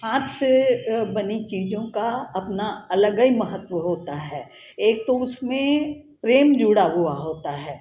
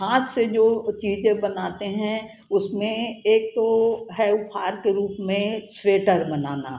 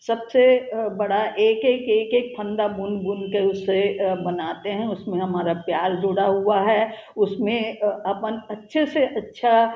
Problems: none marked